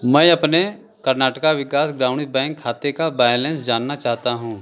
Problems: none marked